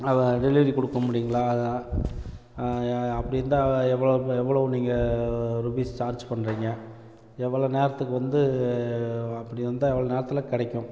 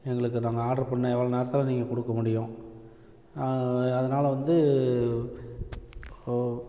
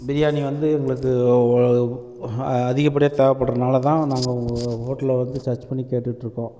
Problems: constant background noise